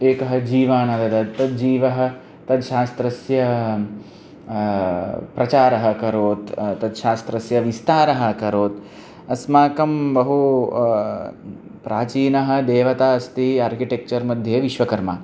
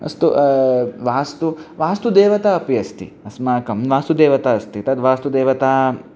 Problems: none marked